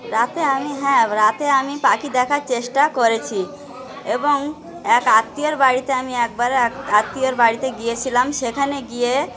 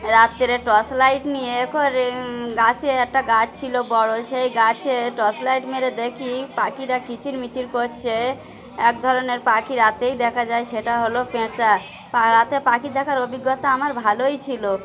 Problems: none marked